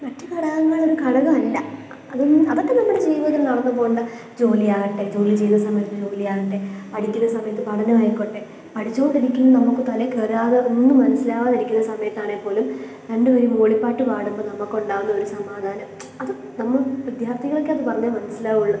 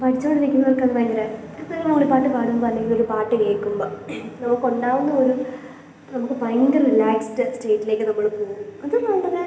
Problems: none marked